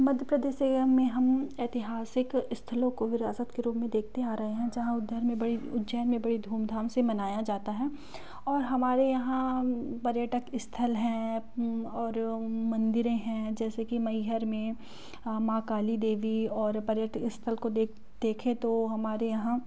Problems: background conversations at intervals